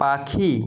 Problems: none marked